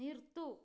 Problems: low volume